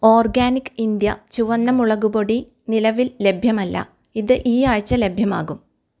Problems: background sounds at intervals